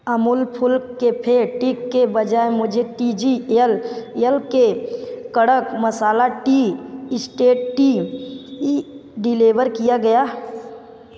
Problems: background sounds at intervals, background conversations at intervals